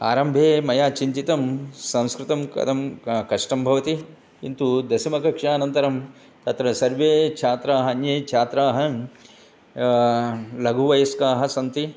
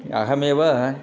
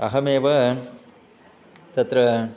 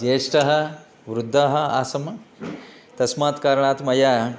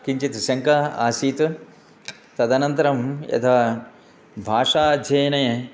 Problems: constant background noise